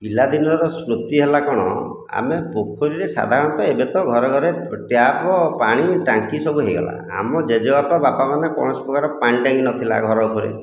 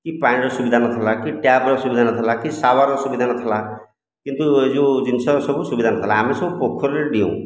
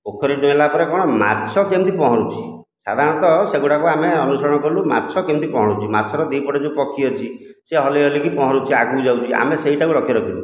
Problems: none marked